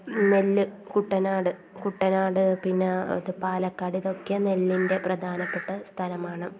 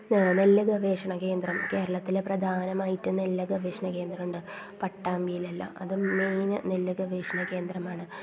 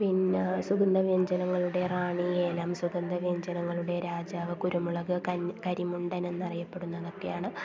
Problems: constant background noise, low volume